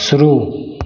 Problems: constant background noise